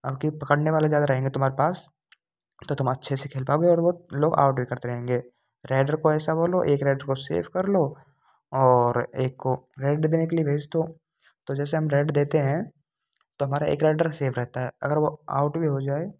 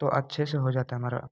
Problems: constant background noise